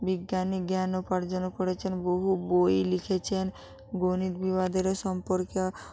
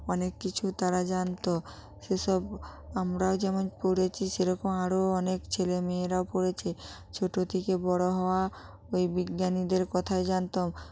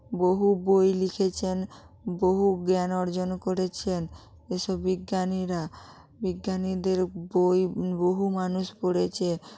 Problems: none marked